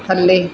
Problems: none marked